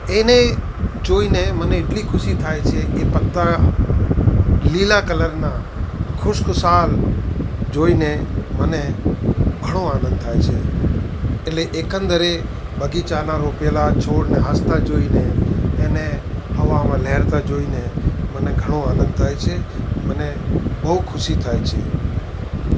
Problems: constant background noise